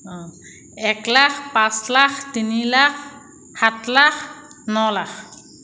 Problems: echo